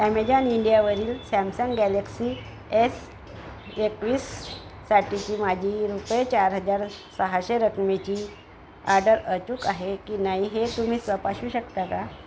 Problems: constant background noise